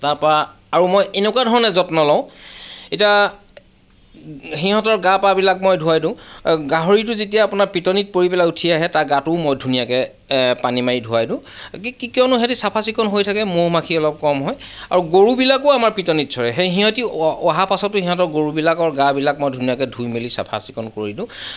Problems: none marked